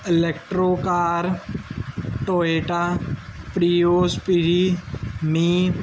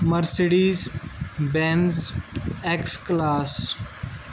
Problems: none marked